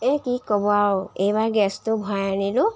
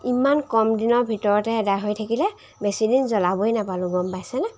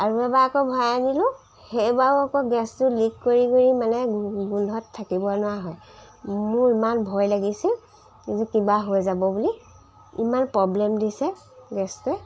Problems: none marked